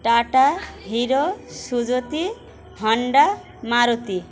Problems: constant background noise